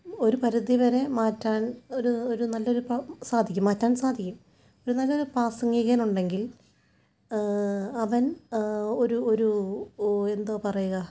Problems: low volume